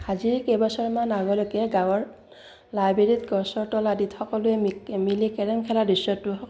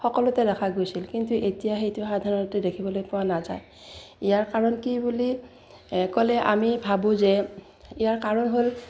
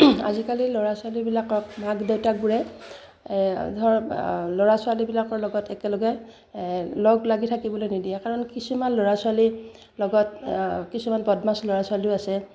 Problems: none marked